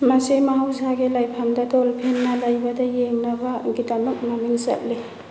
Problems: background sounds at intervals